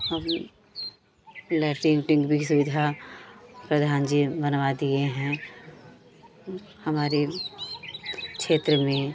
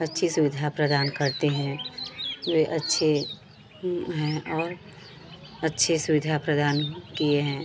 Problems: constant background noise, continuous background conversations